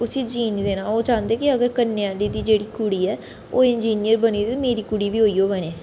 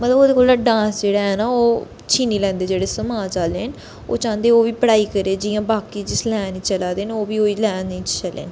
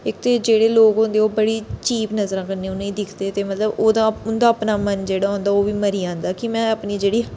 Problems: constant background noise